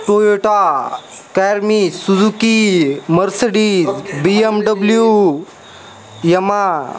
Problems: constant background noise, background conversations at intervals